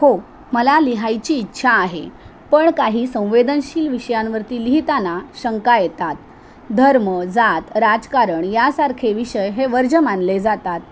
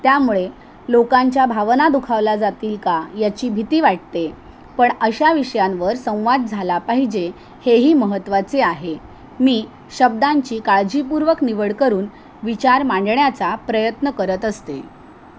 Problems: constant background noise